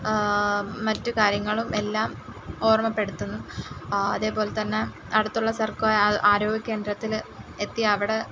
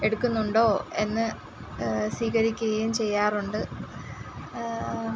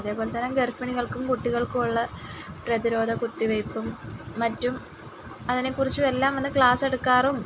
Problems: background sounds at intervals